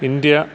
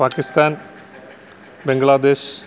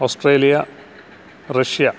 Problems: constant background noise